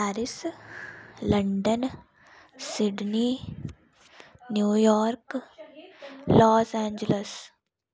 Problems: none marked